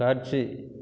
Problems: none marked